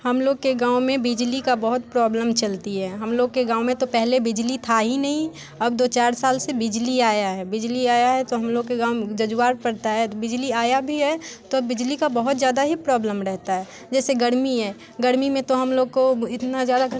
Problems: constant background noise, continuous background conversations